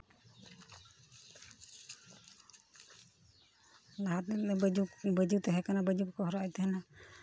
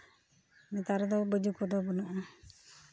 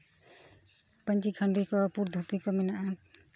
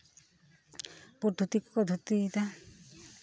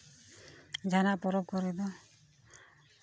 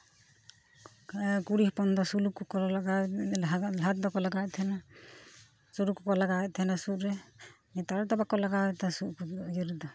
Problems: constant background noise, background conversations at intervals